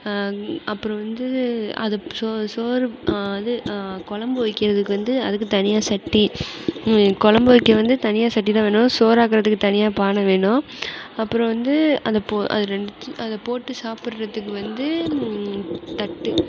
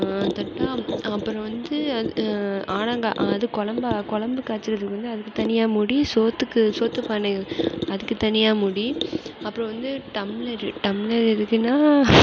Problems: constant background noise